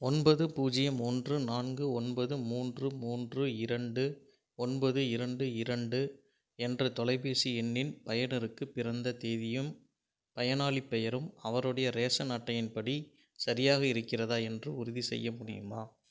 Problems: none marked